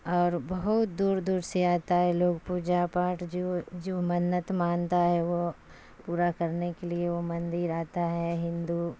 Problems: constant background noise